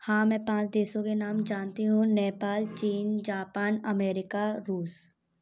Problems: background sounds at intervals